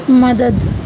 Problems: constant background noise